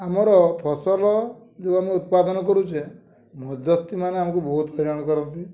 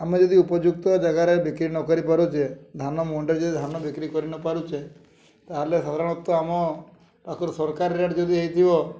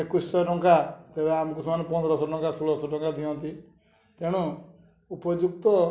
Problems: low volume